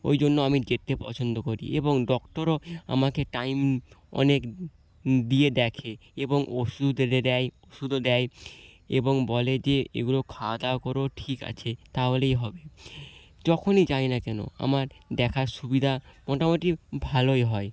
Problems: none marked